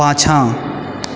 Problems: background sounds at intervals